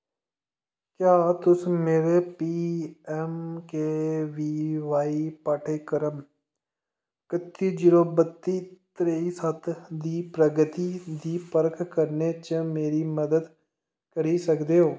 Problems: none marked